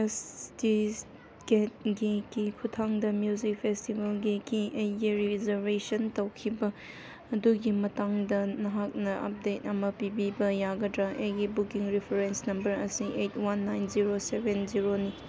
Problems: background sounds at intervals